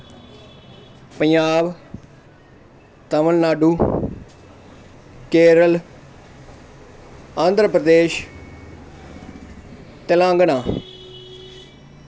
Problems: constant background noise